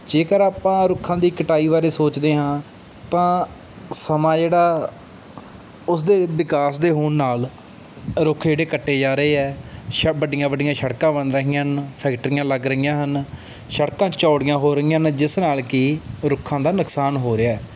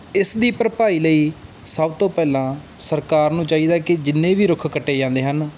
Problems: none marked